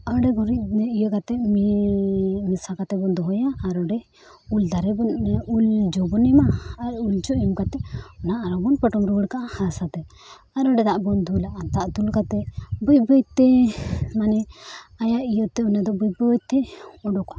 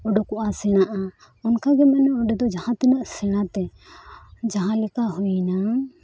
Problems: background sounds at intervals